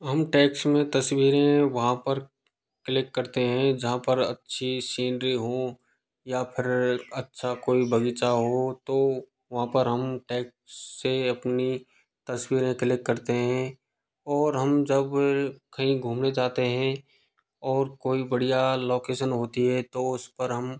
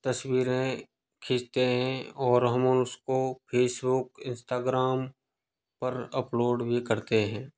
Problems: background sounds at intervals